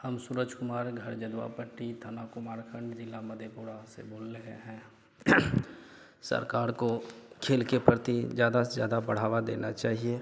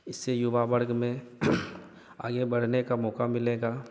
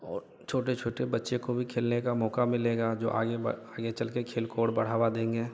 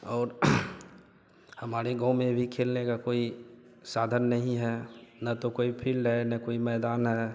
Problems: none marked